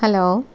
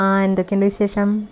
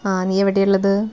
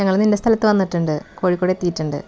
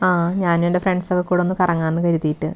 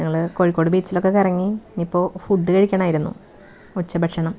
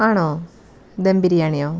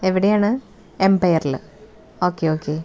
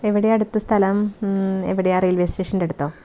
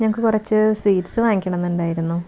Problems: background sounds at intervals